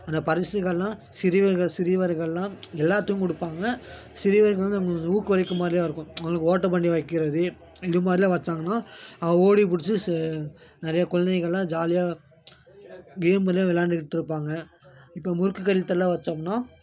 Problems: constant background noise